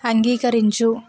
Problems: constant background noise